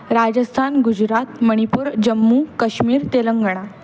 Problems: background conversations at intervals